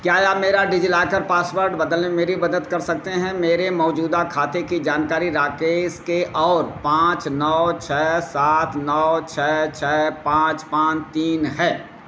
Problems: constant background noise